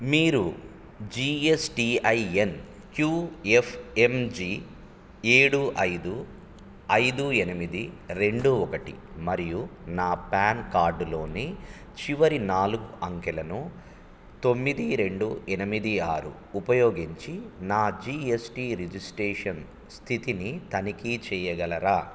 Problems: none marked